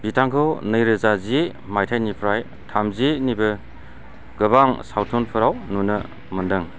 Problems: low volume